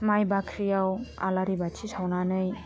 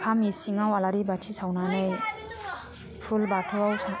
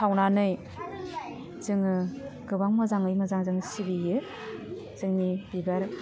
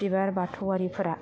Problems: constant background noise